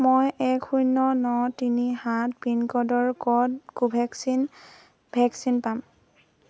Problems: none marked